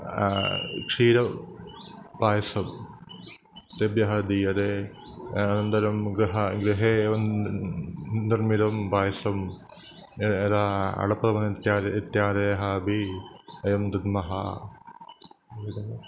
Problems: constant background noise